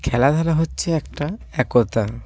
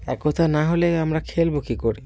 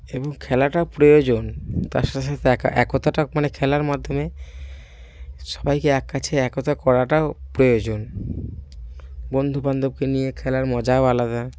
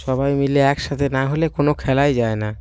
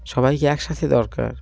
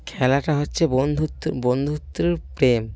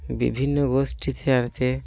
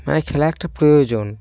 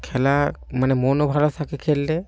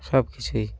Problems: none marked